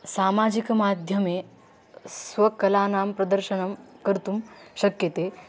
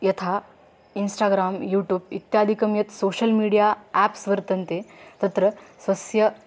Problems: background sounds at intervals